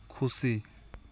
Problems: constant background noise